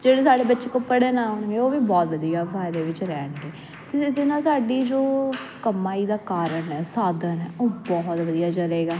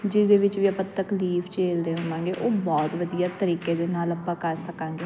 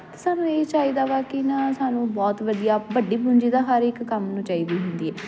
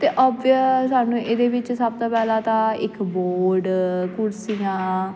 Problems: none marked